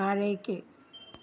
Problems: none marked